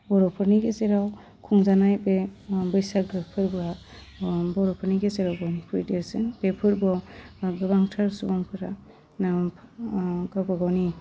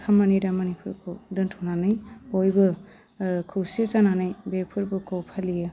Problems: low volume